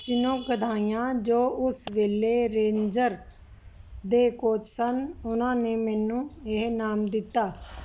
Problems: none marked